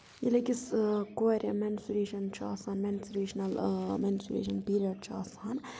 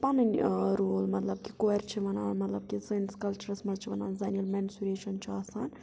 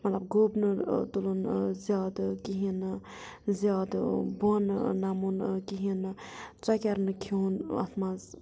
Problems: none marked